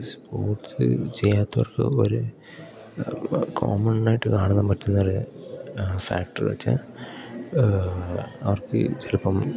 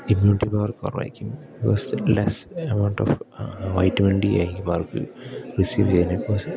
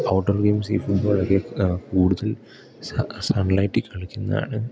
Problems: background sounds at intervals, low volume